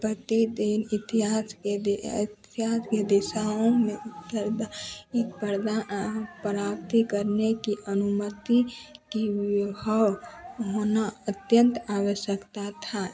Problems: none marked